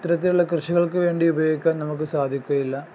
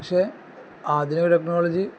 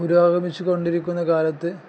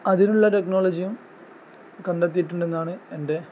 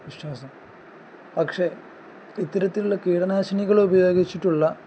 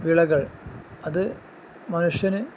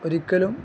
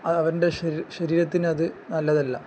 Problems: none marked